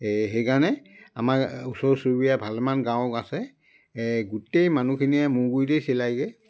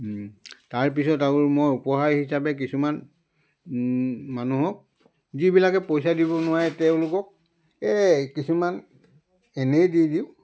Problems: constant background noise